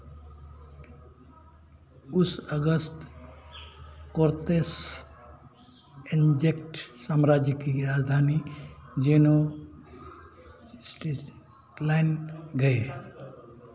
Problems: constant background noise